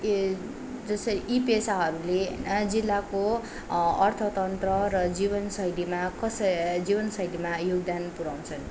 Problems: constant background noise